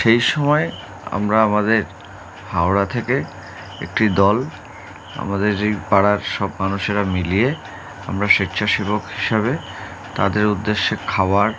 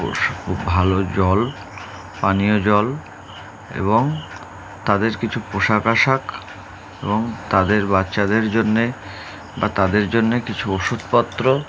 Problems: none marked